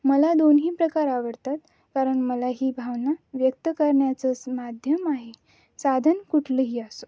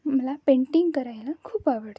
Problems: none marked